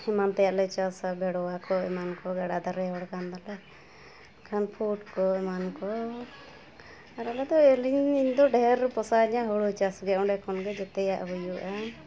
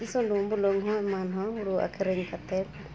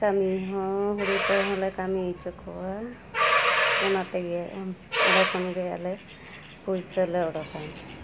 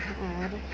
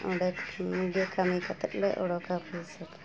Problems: background sounds at intervals